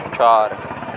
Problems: constant background noise